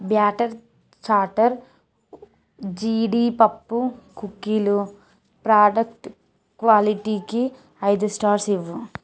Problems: background sounds at intervals